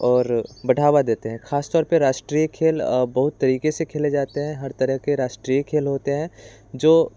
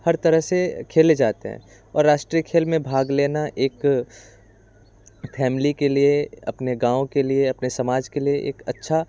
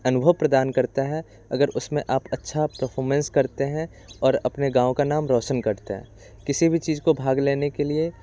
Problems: constant background noise